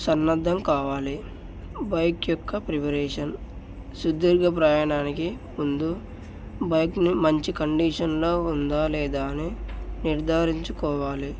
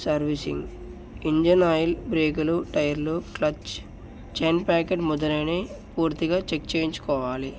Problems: none marked